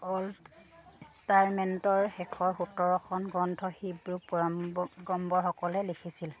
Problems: none marked